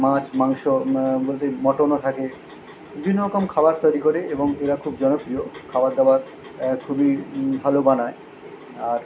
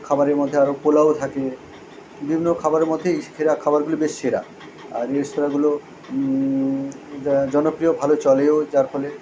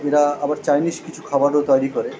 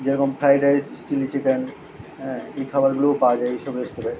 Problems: none marked